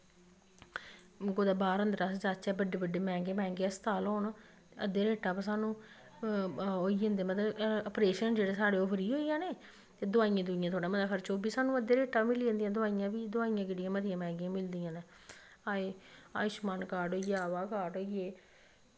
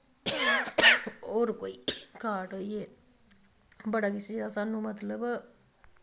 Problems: none marked